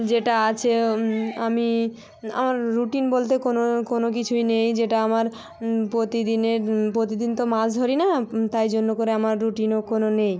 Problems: background conversations at intervals